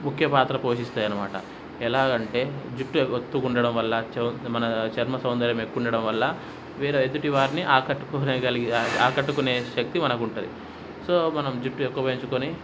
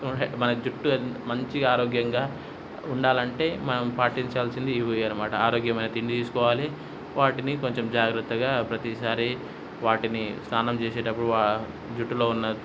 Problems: background sounds at intervals